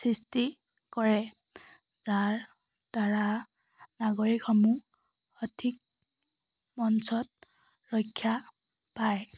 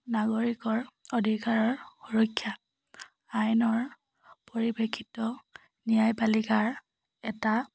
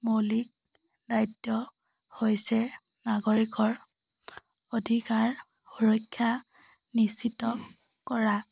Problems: none marked